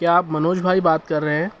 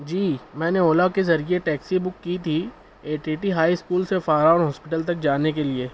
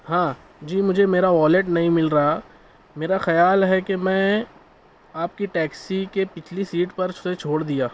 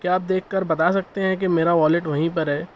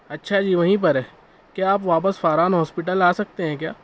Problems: none marked